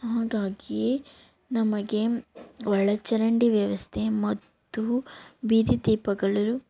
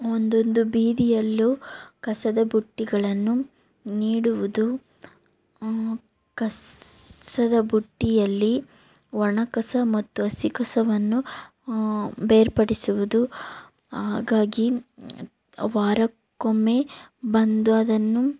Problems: background sounds at intervals